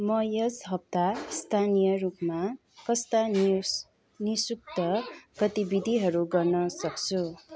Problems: continuous background conversations